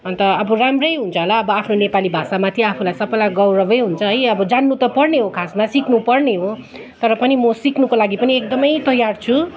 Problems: background sounds at intervals, continuous background conversations